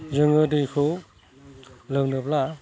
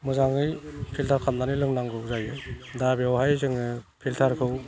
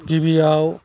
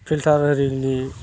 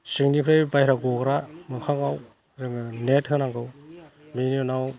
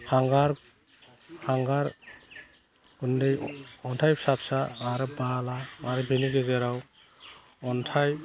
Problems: constant background noise